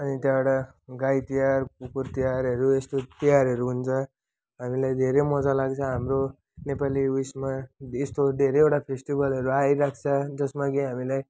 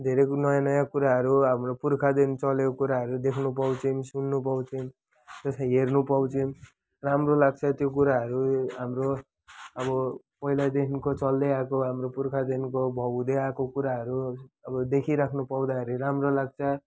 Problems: none marked